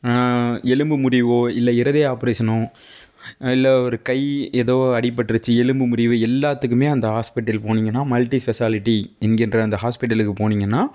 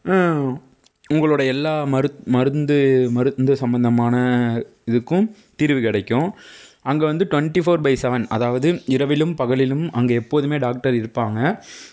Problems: none marked